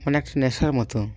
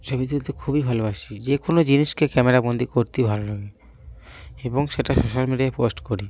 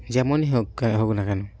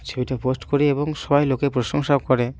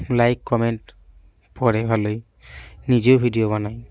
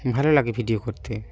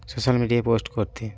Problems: constant background noise